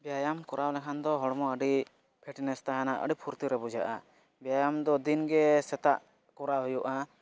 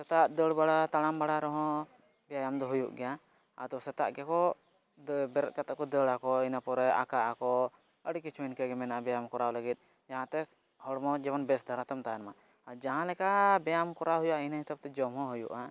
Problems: background sounds at intervals